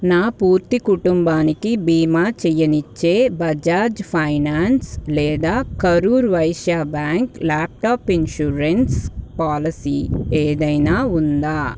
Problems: constant background noise